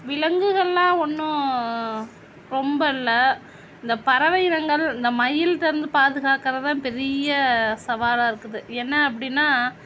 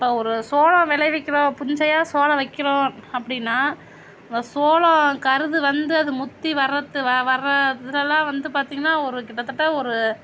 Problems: constant background noise